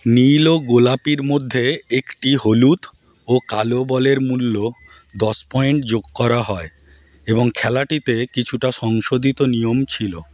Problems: constant background noise, background conversations at intervals